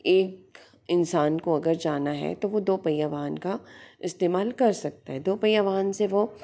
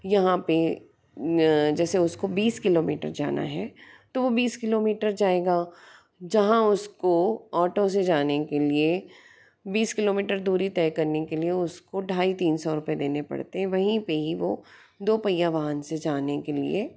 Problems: none marked